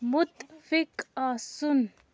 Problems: none marked